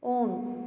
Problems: echo, low volume